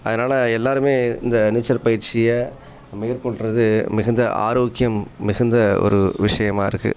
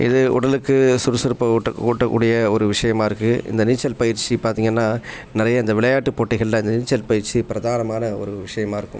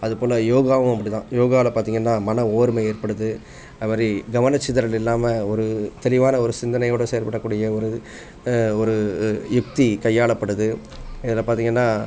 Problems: background conversations at intervals